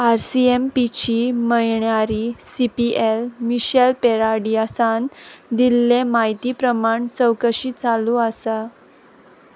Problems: constant background noise